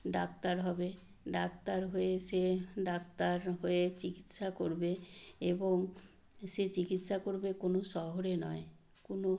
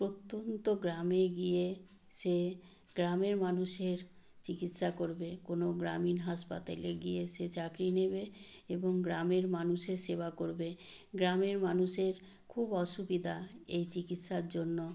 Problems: background sounds at intervals